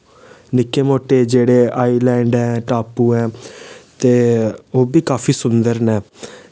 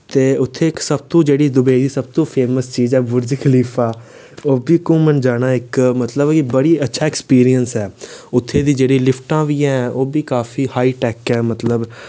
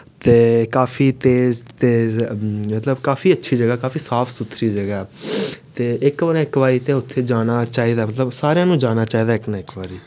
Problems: none marked